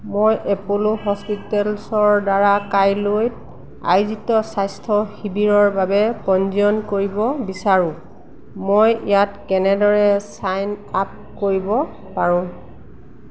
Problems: none marked